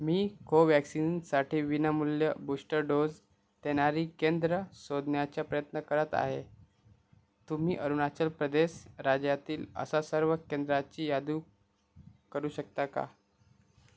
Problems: none marked